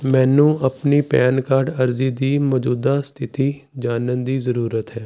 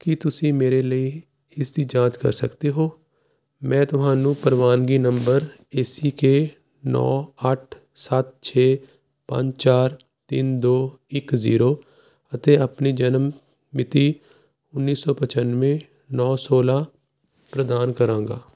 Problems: constant background noise